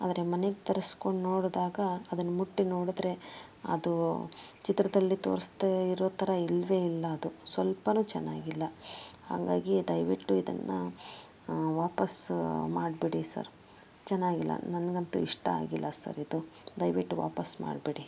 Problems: background sounds at intervals